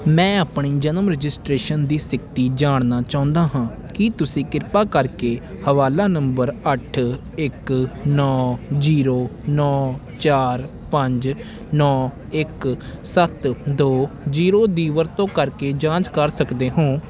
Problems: constant background noise